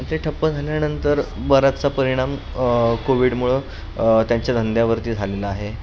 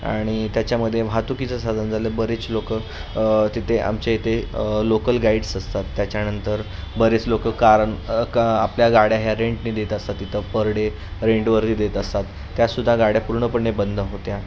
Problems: constant background noise